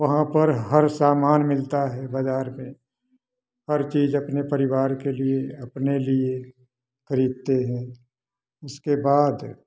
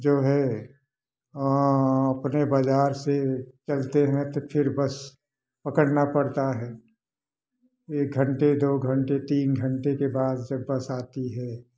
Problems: background sounds at intervals, background conversations at intervals